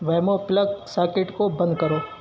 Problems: constant background noise, background conversations at intervals